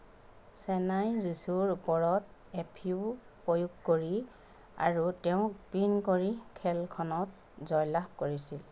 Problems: background sounds at intervals